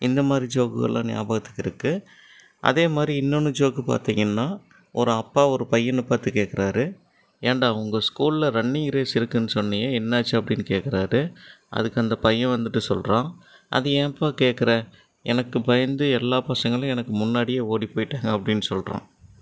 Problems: none marked